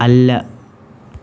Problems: constant background noise